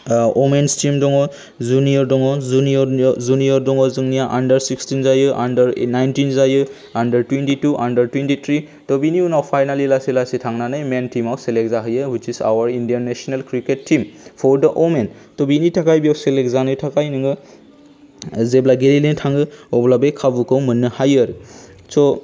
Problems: low volume